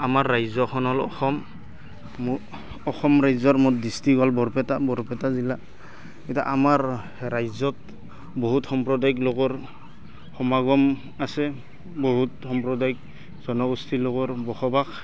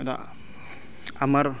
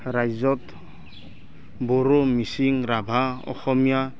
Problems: constant background noise